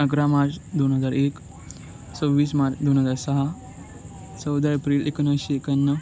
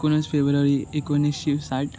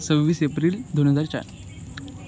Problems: none marked